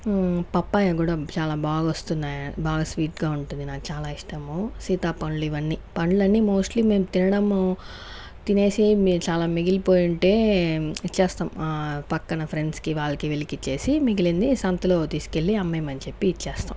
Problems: background sounds at intervals